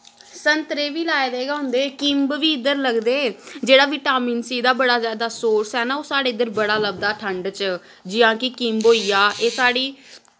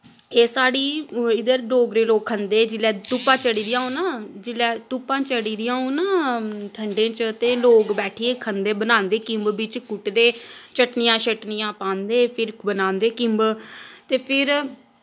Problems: background sounds at intervals